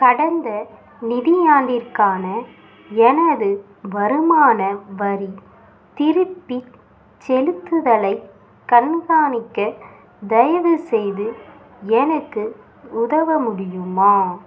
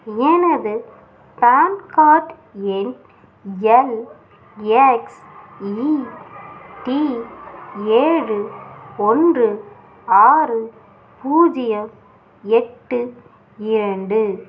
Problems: background sounds at intervals